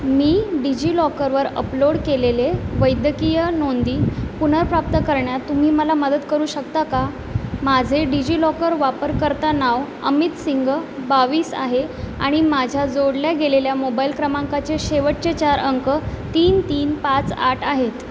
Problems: none marked